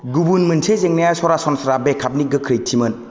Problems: none marked